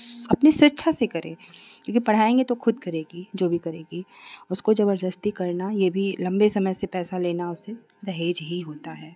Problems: none marked